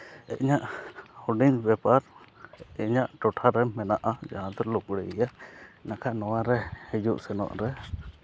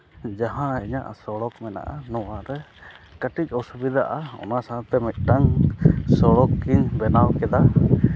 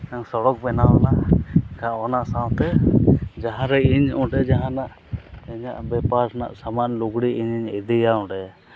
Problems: constant background noise